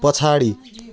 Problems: constant background noise